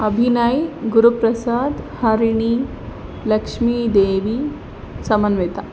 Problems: constant background noise